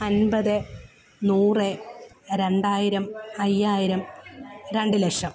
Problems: background sounds at intervals